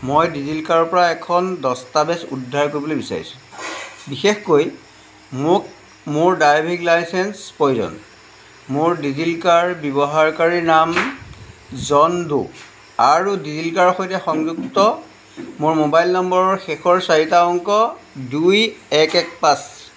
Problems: background sounds at intervals